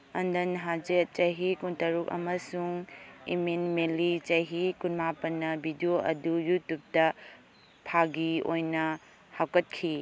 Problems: none marked